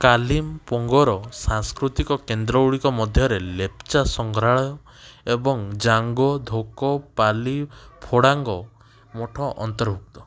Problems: background sounds at intervals, background conversations at intervals